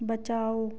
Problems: none marked